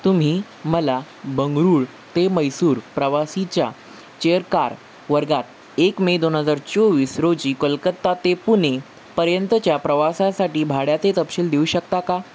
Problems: constant background noise